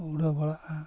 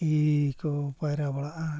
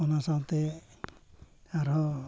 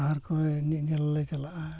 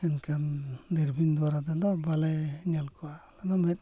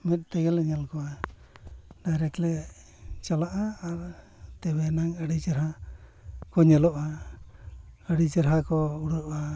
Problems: background sounds at intervals, low volume